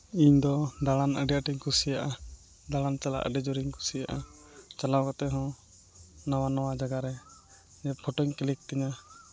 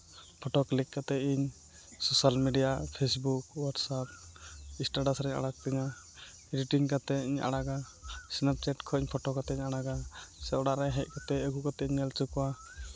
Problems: constant background noise